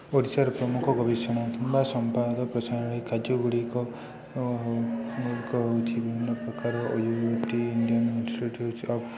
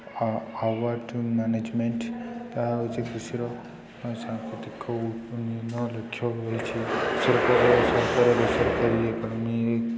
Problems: constant background noise, continuous background conversations